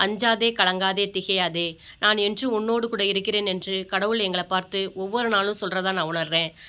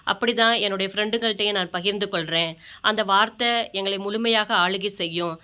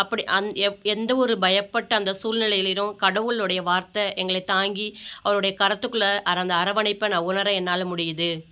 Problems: none marked